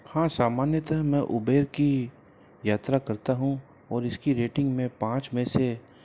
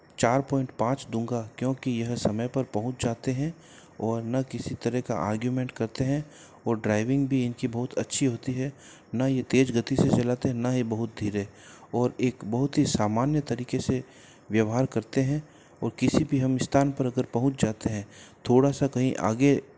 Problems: constant background noise